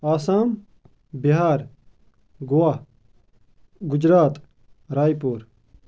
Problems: constant background noise